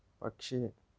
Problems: low volume